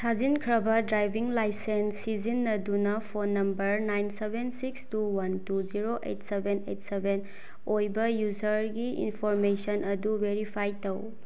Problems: none marked